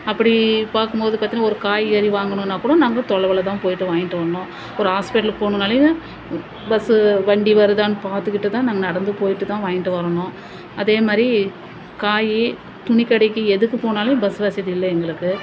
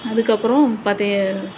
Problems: constant background noise